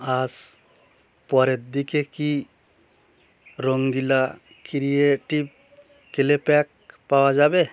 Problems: background sounds at intervals